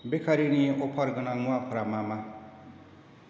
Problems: constant background noise